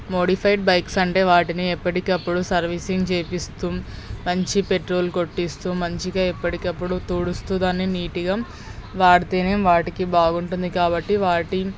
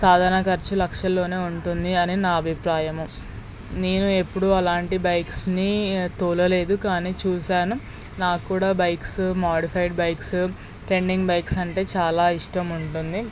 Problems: background sounds at intervals